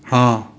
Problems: echo